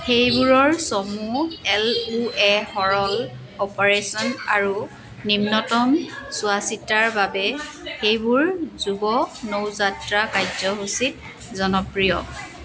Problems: background sounds at intervals, continuous background conversations